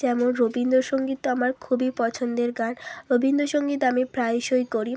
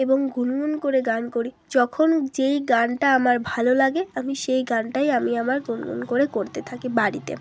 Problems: none marked